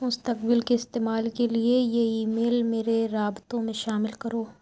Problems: none marked